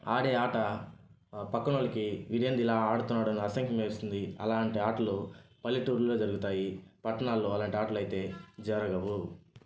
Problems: background sounds at intervals